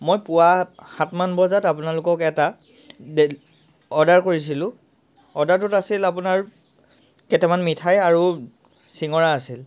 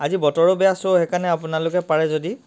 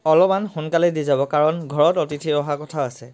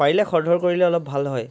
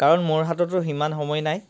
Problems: constant background noise